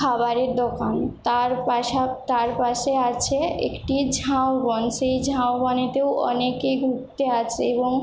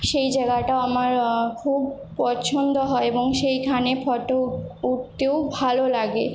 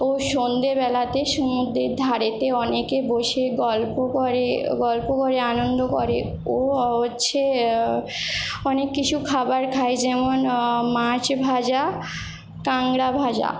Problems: none marked